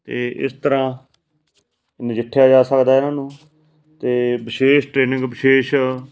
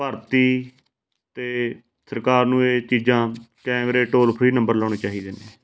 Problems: constant background noise